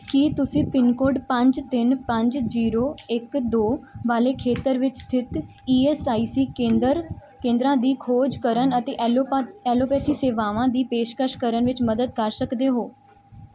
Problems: none marked